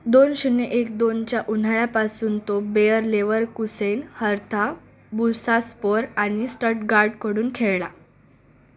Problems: constant background noise, background conversations at intervals